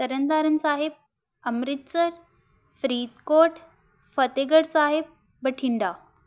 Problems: none marked